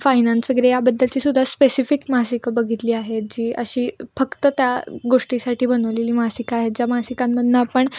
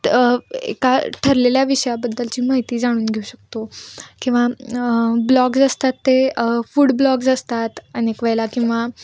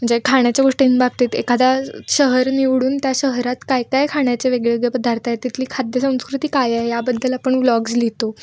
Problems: background sounds at intervals, background conversations at intervals